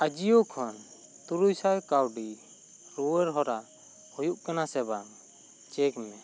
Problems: constant background noise